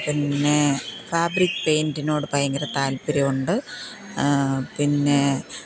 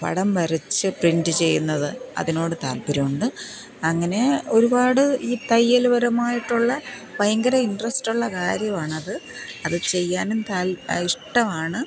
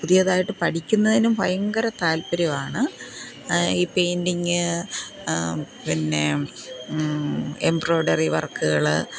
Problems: none marked